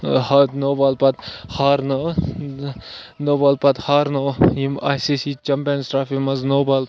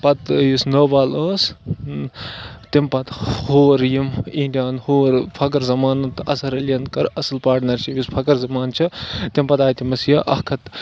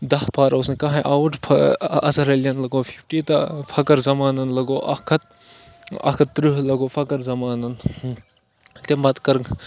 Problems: constant background noise